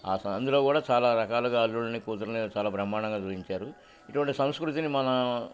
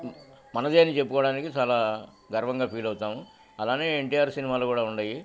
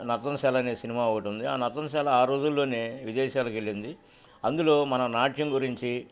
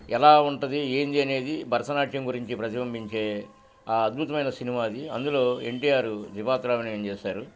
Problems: none marked